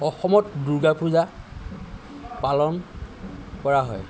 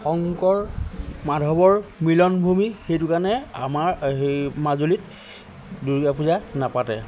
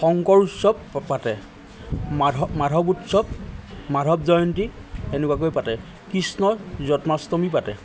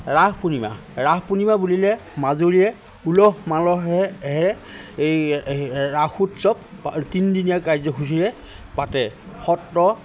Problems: none marked